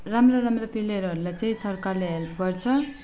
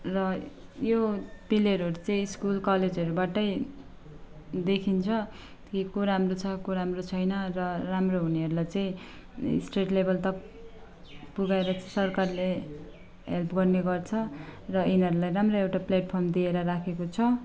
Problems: constant background noise